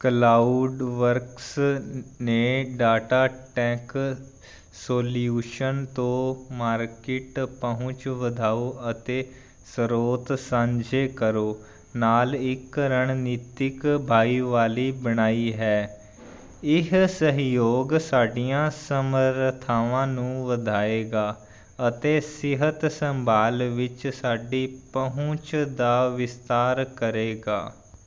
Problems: constant background noise